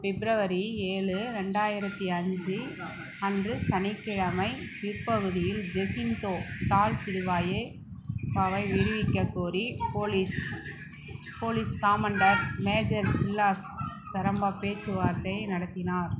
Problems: none marked